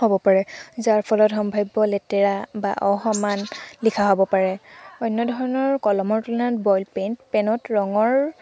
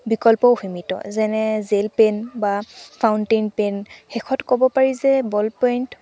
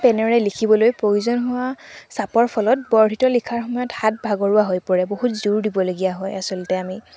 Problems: background sounds at intervals